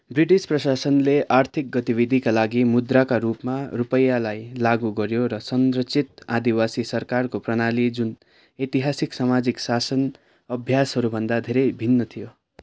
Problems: none marked